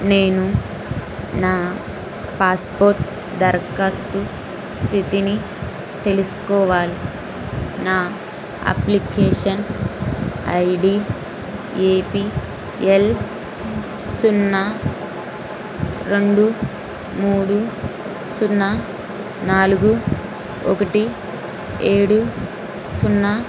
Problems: constant background noise